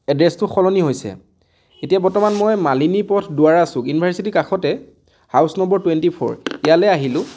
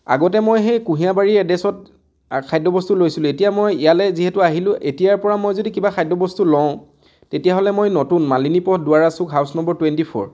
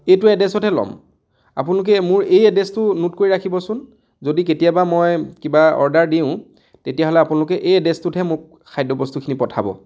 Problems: none marked